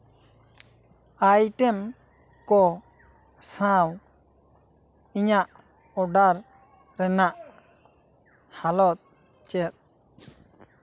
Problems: background sounds at intervals